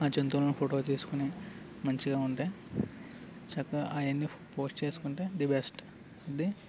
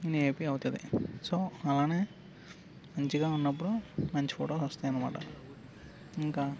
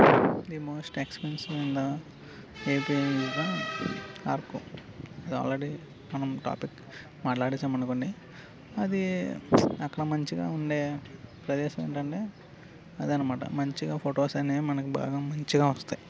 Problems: constant background noise